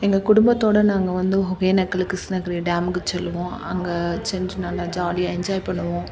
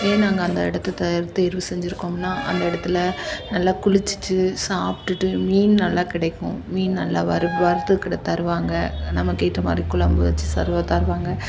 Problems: background sounds at intervals